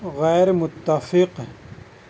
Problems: constant background noise